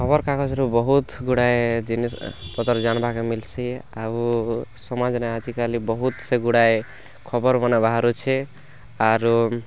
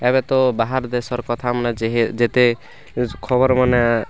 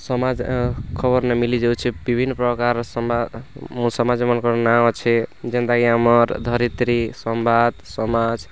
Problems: background sounds at intervals, background conversations at intervals